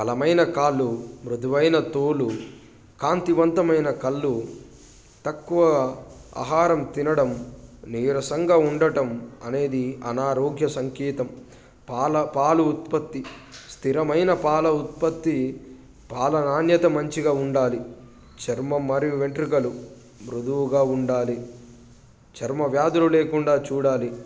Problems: constant background noise, background conversations at intervals